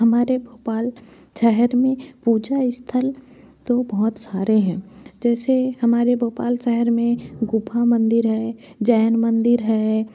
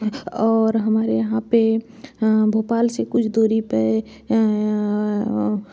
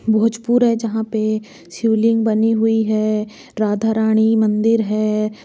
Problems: constant background noise